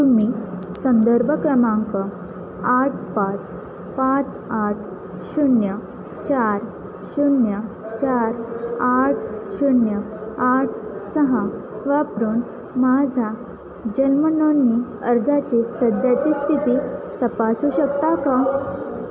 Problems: constant background noise, continuous background conversations